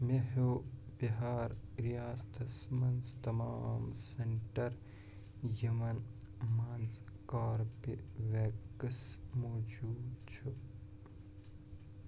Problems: background sounds at intervals, low volume